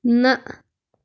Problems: background sounds at intervals